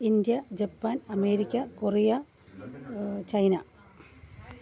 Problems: constant background noise, background conversations at intervals